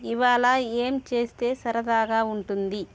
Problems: constant background noise